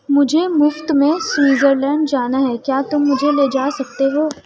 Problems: constant background noise